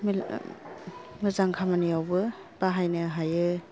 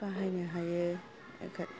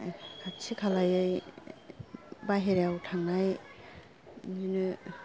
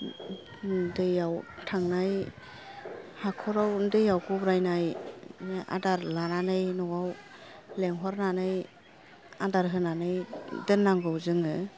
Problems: low volume